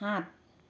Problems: none marked